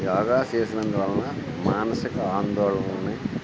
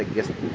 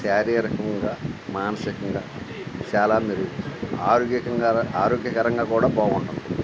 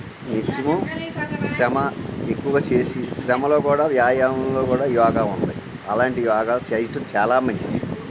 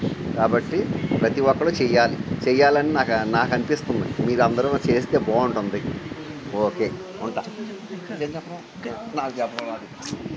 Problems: constant background noise